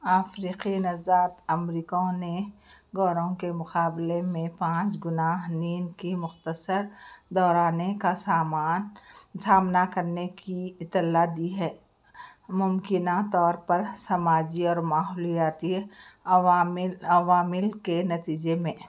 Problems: background sounds at intervals